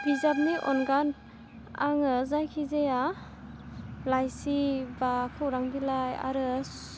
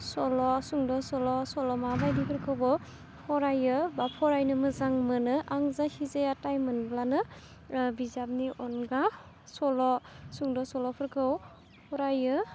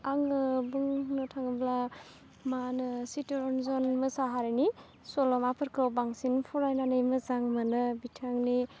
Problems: constant background noise